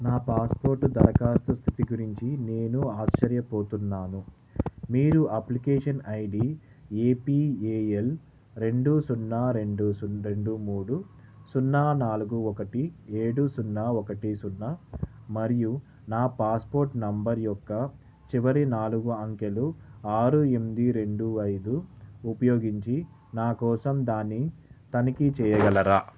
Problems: background sounds at intervals